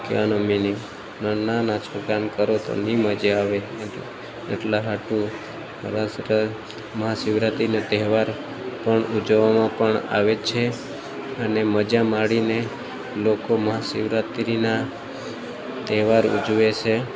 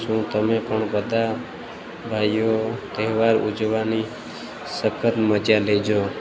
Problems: none marked